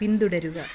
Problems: background sounds at intervals